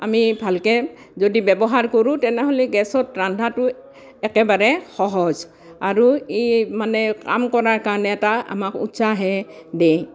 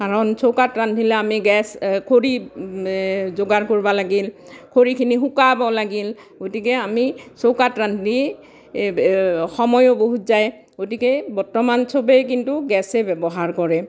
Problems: none marked